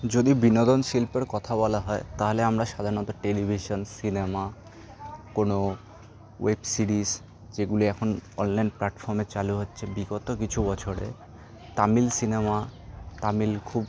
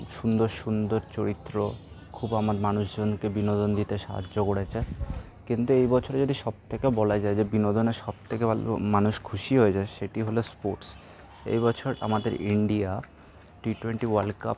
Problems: none marked